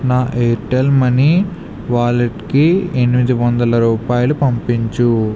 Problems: constant background noise